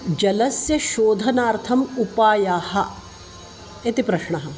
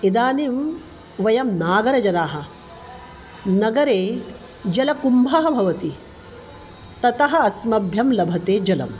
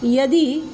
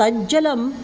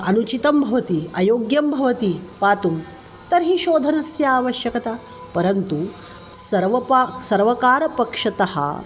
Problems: constant background noise